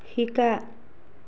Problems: none marked